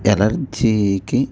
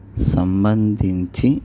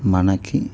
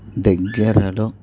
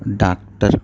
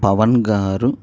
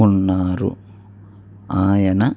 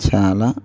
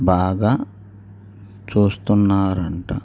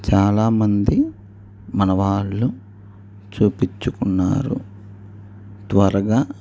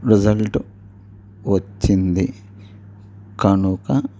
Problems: low volume